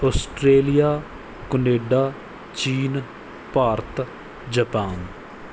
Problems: background sounds at intervals